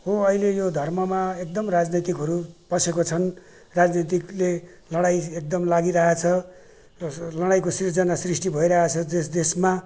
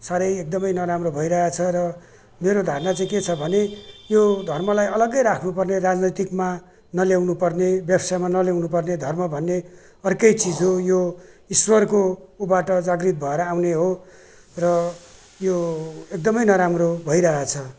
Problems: none marked